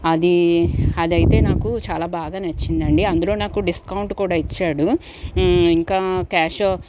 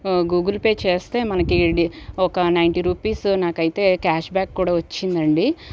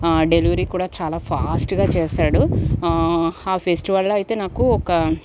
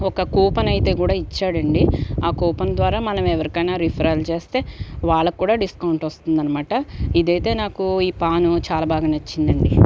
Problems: background sounds at intervals